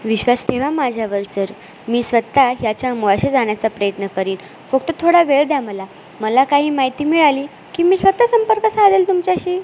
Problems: constant background noise